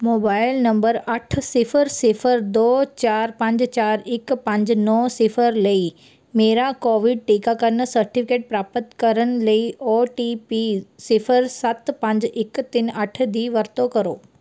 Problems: none marked